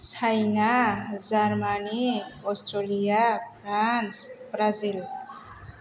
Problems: background sounds at intervals